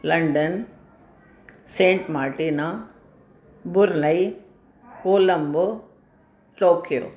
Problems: constant background noise